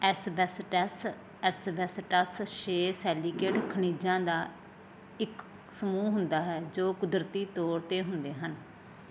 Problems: constant background noise